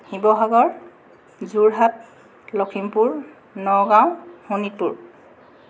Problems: constant background noise